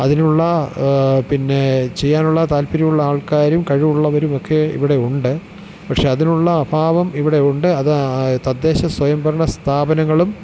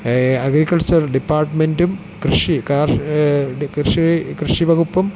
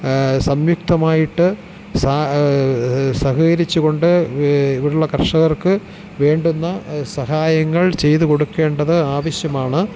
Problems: constant background noise, low volume